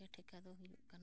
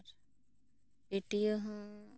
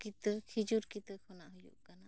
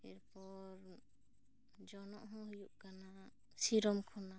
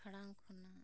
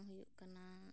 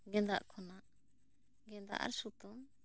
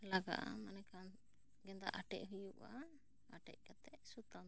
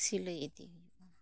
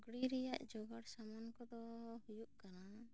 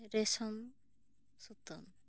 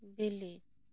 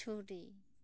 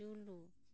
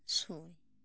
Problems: low volume